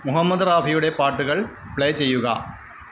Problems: constant background noise